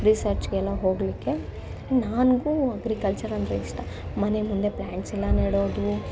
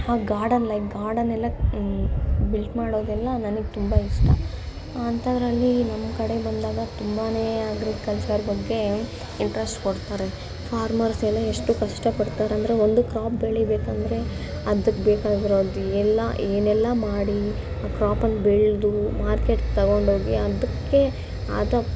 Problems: constant background noise